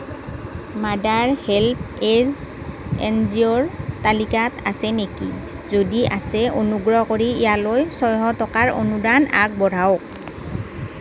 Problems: constant background noise